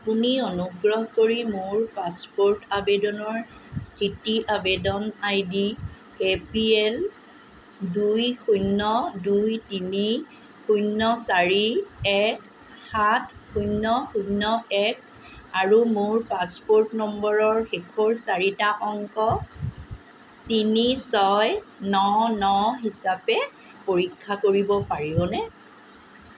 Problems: constant background noise